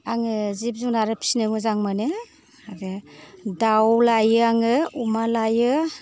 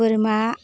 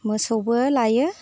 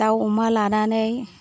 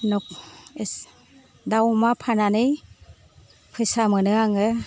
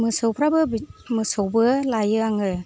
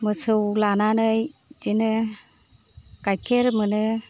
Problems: low volume